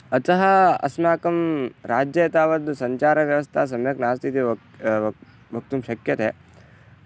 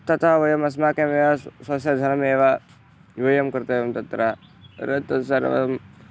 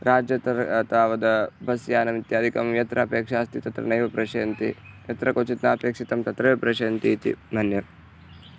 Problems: background sounds at intervals